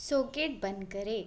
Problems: constant background noise